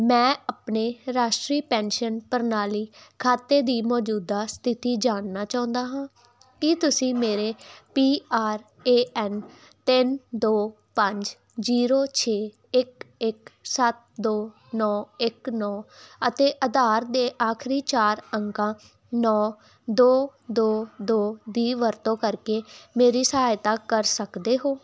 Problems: constant background noise